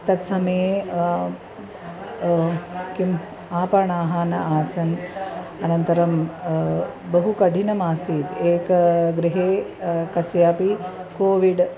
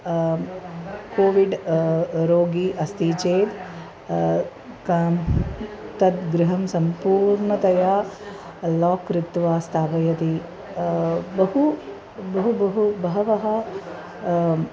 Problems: constant background noise, continuous background conversations